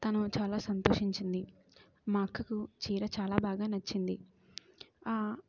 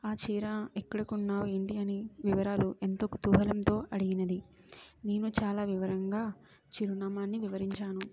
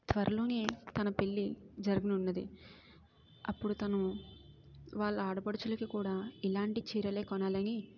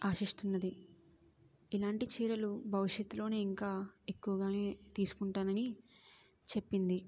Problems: background sounds at intervals, low volume